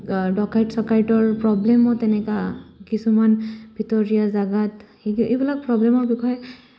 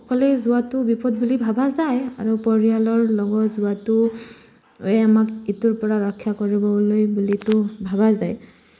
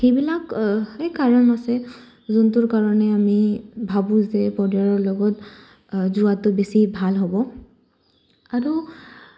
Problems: none marked